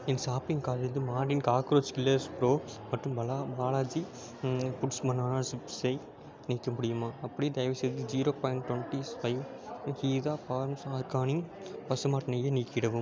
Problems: constant background noise